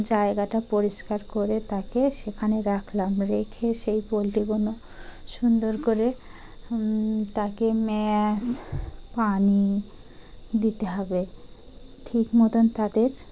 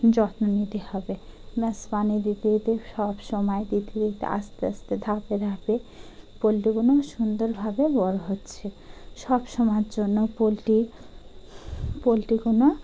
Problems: none marked